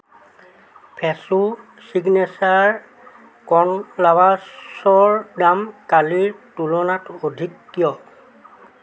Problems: constant background noise, continuous background conversations